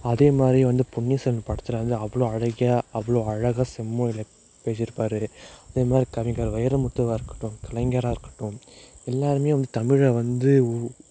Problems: constant background noise